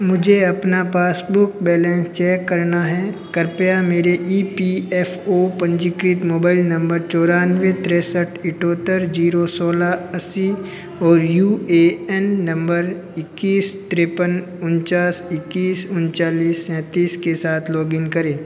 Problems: constant background noise, background conversations at intervals